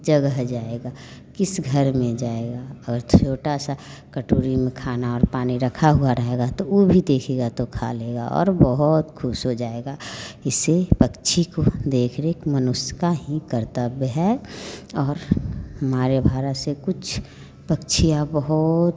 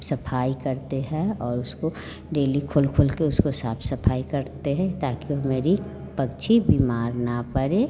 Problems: none marked